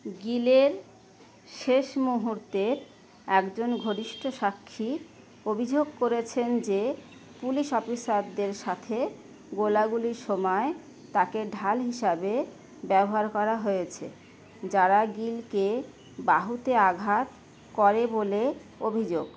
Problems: none marked